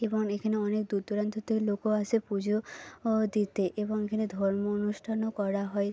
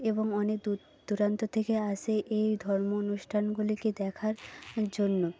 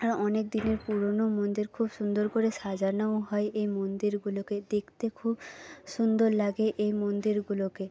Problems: background sounds at intervals